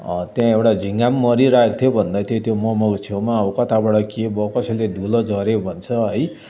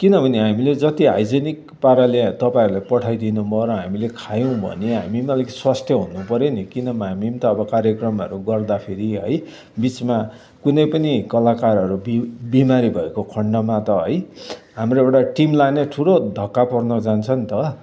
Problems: constant background noise, continuous background conversations